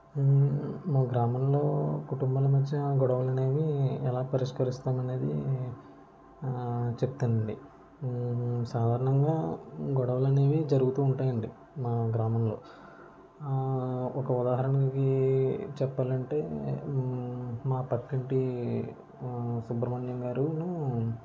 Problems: none marked